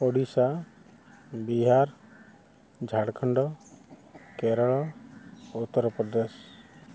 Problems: constant background noise